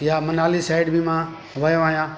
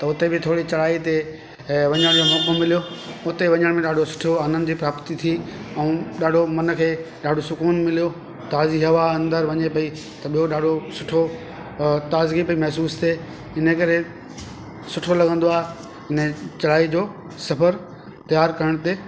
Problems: constant background noise, echo